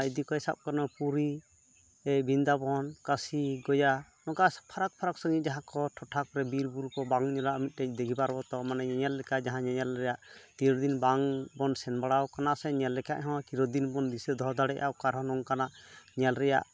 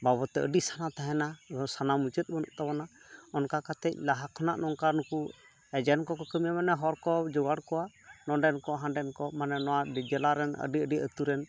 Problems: none marked